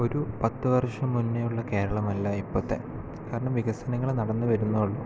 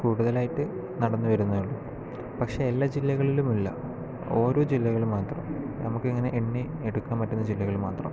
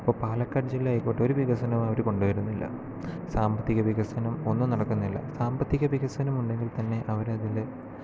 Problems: low volume